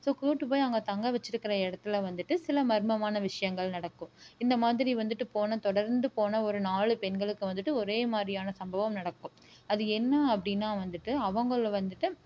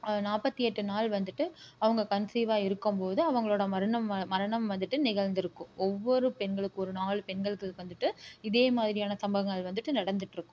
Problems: none marked